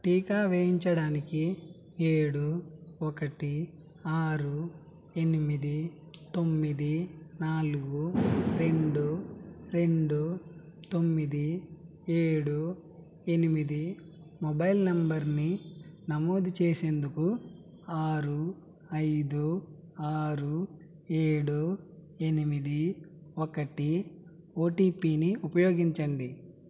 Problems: background sounds at intervals